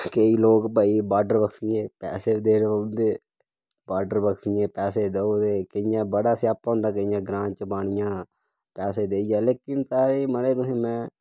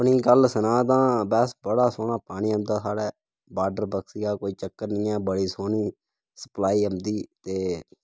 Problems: background sounds at intervals, low volume